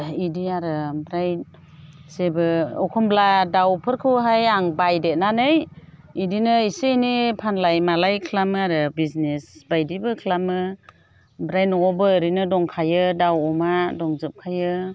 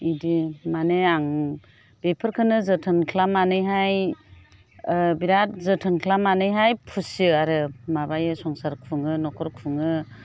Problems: none marked